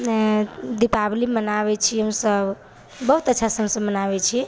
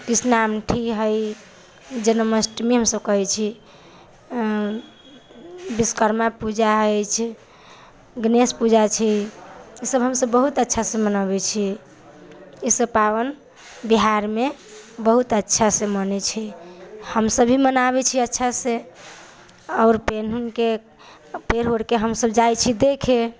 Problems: none marked